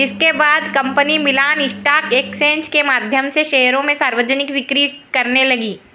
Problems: none marked